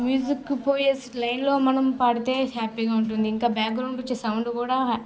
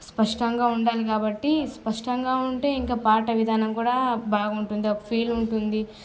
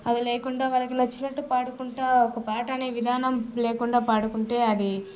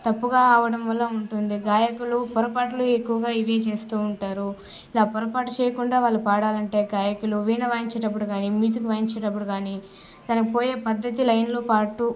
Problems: constant background noise